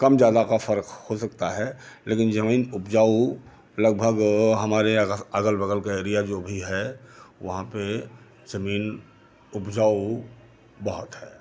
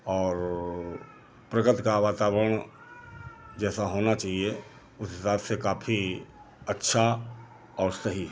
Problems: none marked